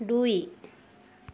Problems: constant background noise